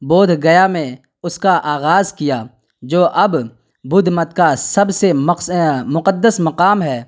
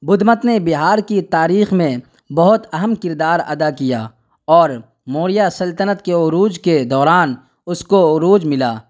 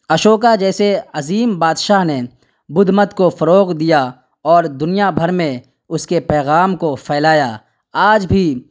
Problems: none marked